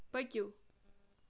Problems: none marked